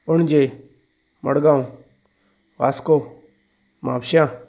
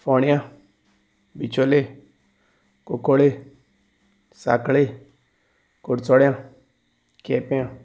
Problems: none marked